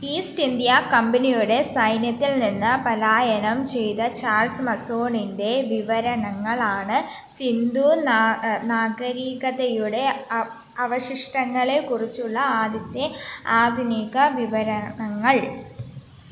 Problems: none marked